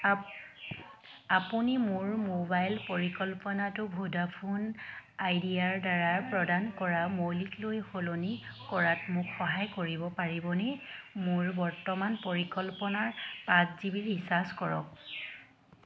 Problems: none marked